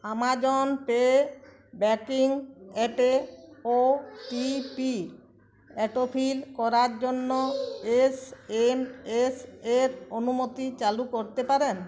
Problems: constant background noise, continuous background conversations